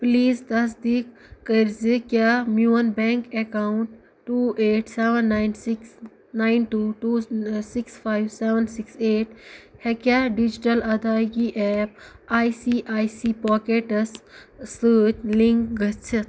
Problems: background sounds at intervals